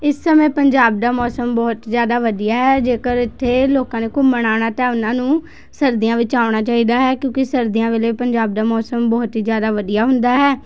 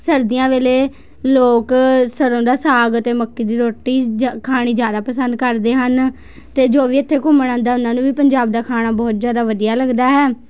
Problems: constant background noise